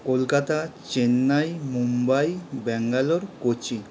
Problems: constant background noise